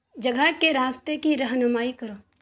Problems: none marked